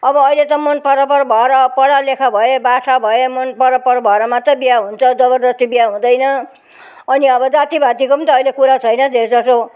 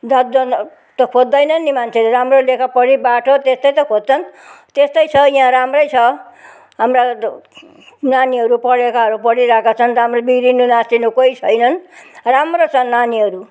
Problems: none marked